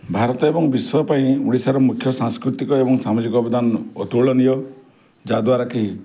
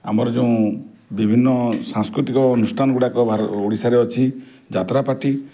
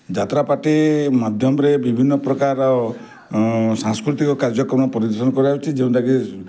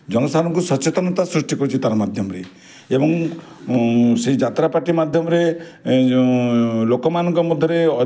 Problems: none marked